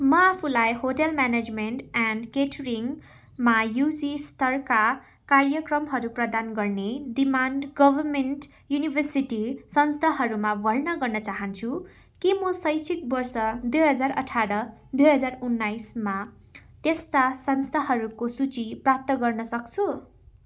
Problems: background sounds at intervals